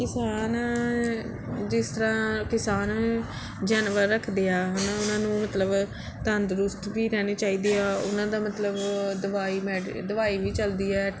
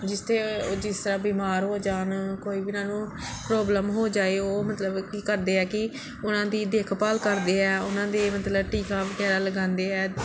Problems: background sounds at intervals, background conversations at intervals